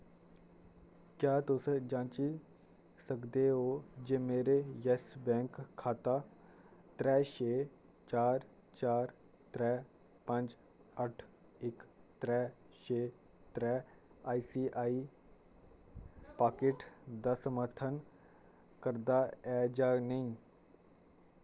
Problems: constant background noise